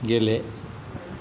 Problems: constant background noise